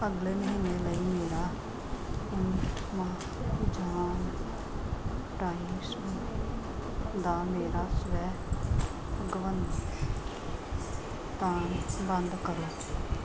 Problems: constant background noise